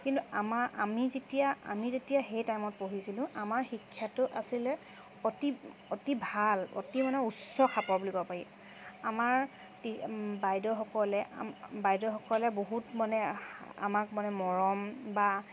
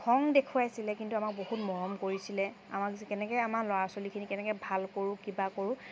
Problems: constant background noise, background conversations at intervals